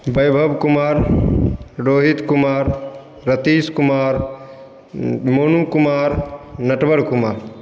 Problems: none marked